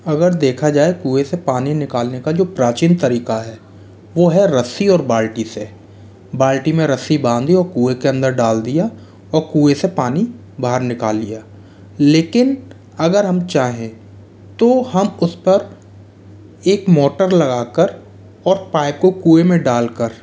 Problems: constant background noise